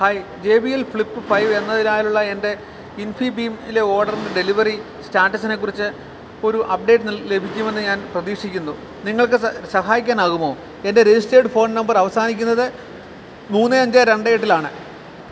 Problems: none marked